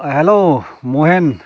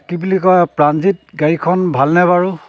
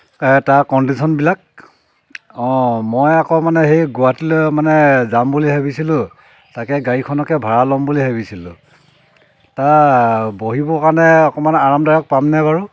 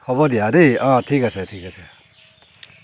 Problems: background sounds at intervals